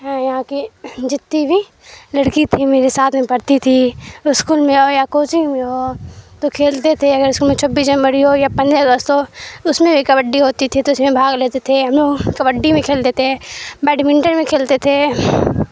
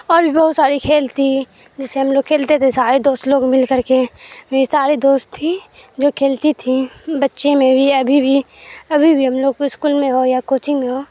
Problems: constant background noise